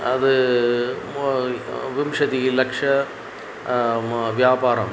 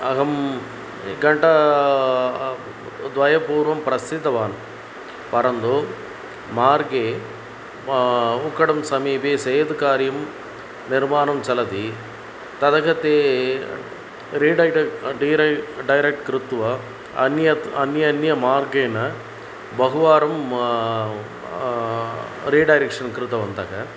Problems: constant background noise